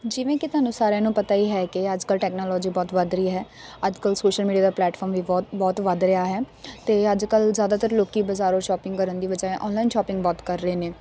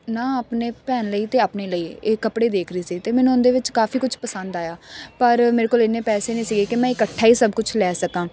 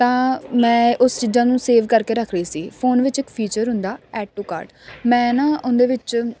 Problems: constant background noise